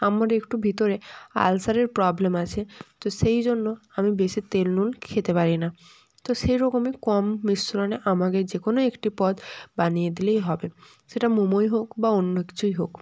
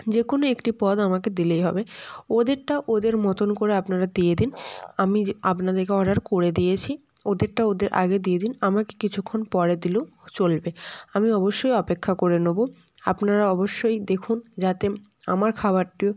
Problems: none marked